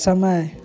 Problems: none marked